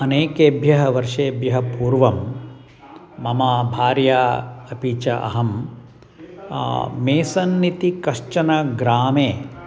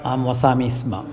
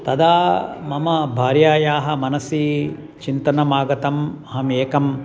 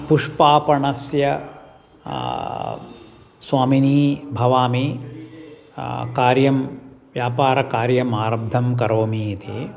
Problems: none marked